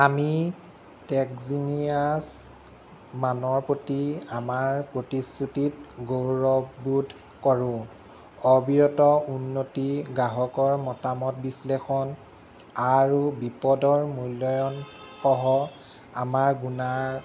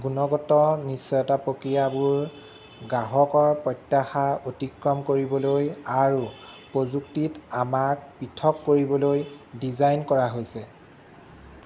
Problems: constant background noise